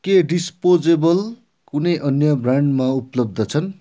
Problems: none marked